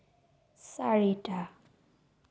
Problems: low volume